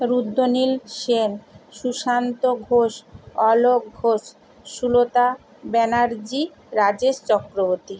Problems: constant background noise